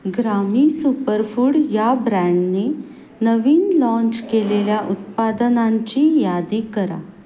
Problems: constant background noise